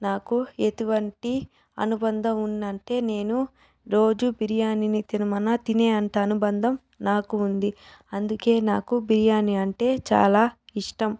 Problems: background conversations at intervals